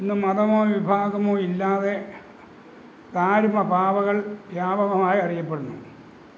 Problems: none marked